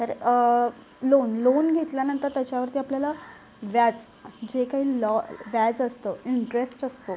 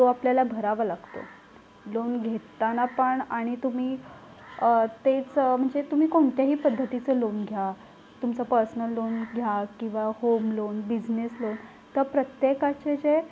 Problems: constant background noise, low volume